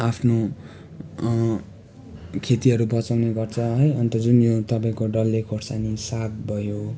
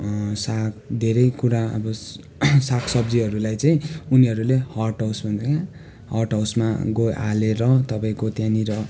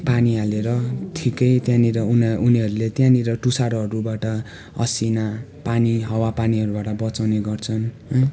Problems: constant background noise, continuous background conversations